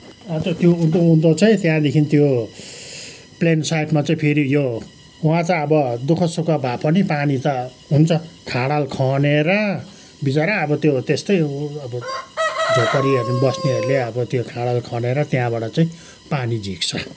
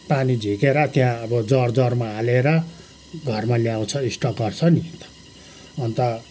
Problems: background sounds at intervals